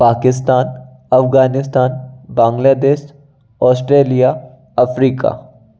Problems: none marked